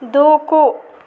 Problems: constant background noise